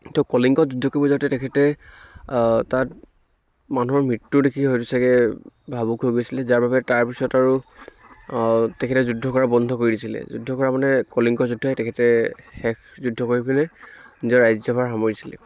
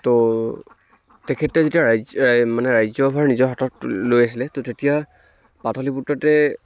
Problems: none marked